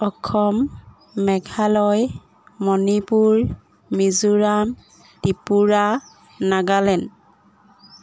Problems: background sounds at intervals